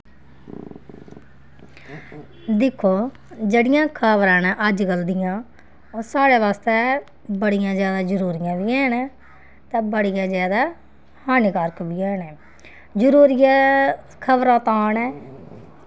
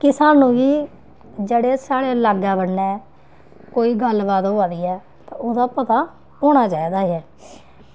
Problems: constant background noise